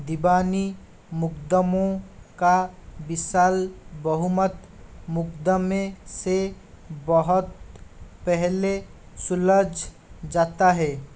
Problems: constant background noise